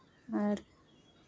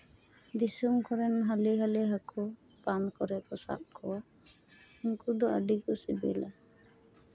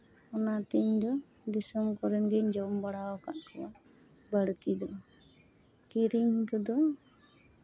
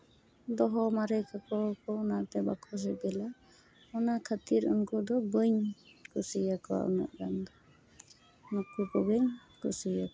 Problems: background sounds at intervals